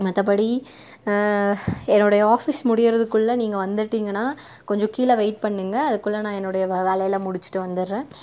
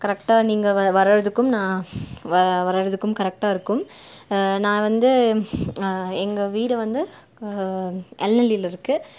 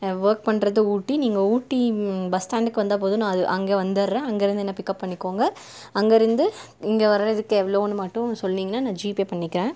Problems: none marked